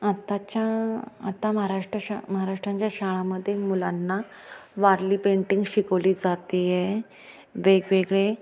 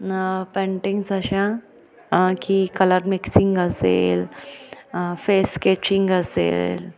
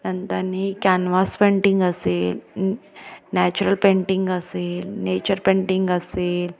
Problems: background sounds at intervals, continuous background conversations